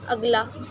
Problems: constant background noise